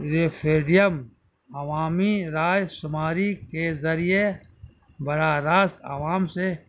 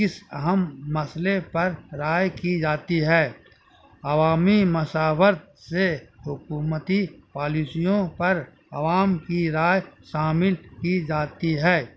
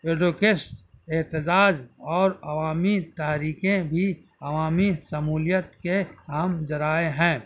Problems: background sounds at intervals